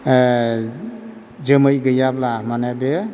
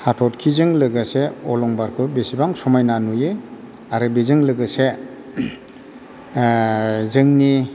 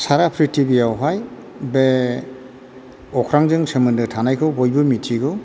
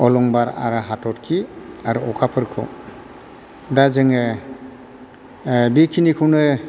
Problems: constant background noise